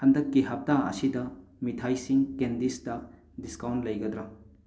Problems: none marked